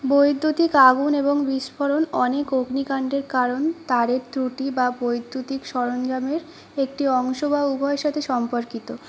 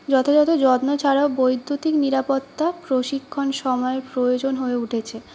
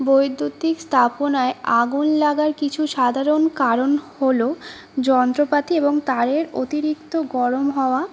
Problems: constant background noise